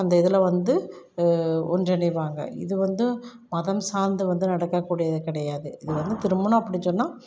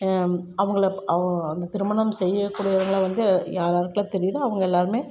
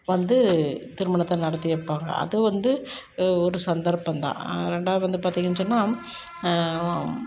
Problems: none marked